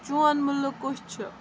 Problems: constant background noise